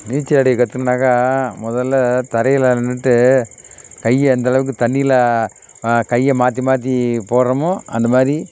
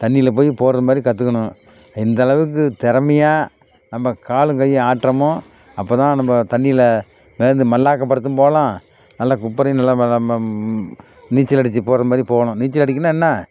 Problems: background sounds at intervals